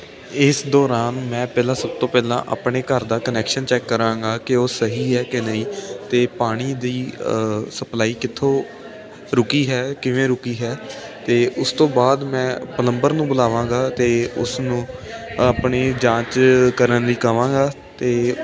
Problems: constant background noise